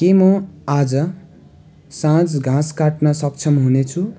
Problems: none marked